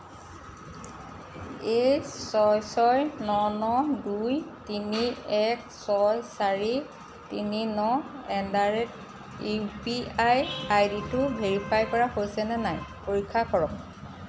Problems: constant background noise